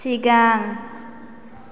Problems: none marked